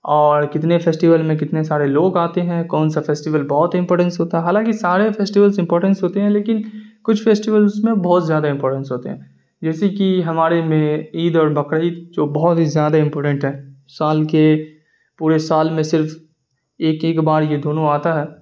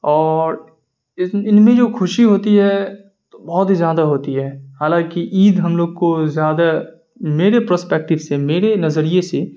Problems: none marked